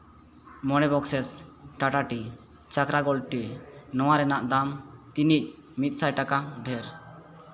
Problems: continuous background conversations